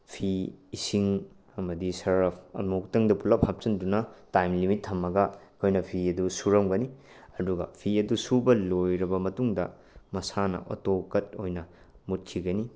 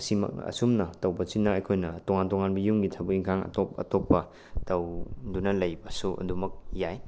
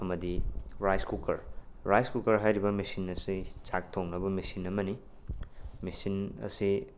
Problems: none marked